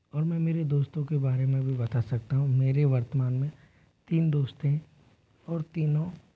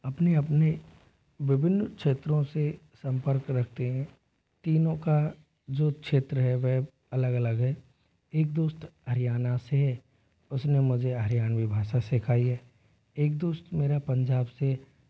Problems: low volume